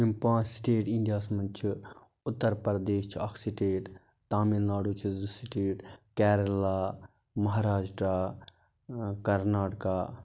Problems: constant background noise